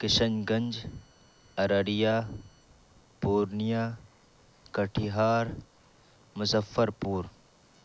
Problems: background sounds at intervals